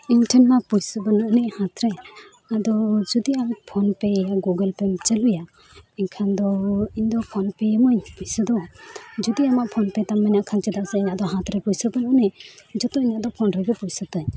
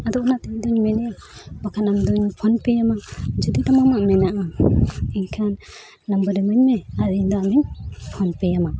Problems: none marked